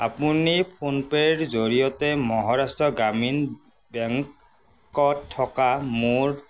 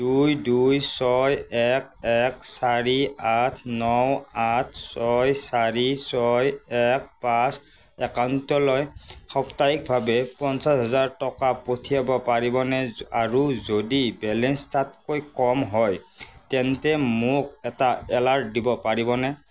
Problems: constant background noise